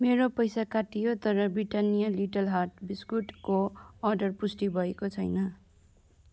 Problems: none marked